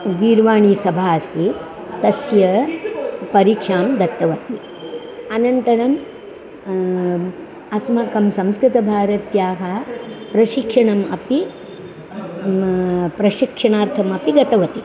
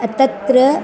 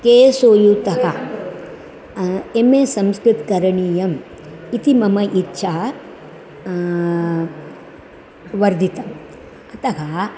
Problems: constant background noise, continuous background conversations